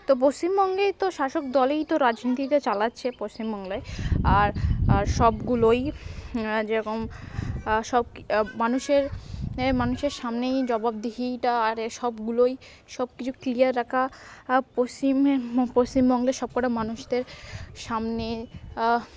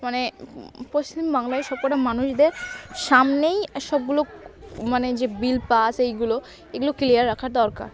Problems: continuous background conversations